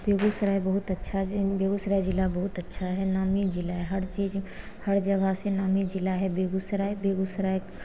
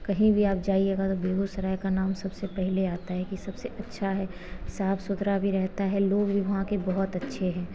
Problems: background sounds at intervals